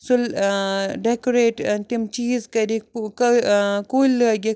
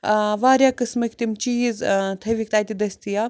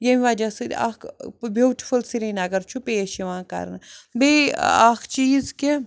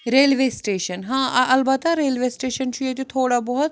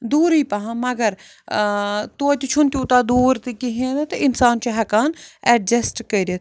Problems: background sounds at intervals